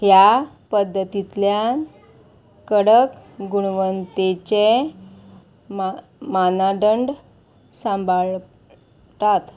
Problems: constant background noise